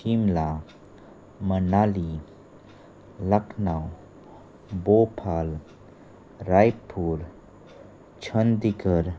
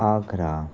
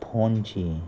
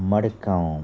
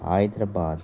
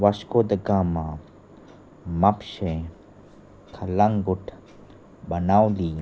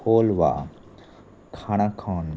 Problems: constant background noise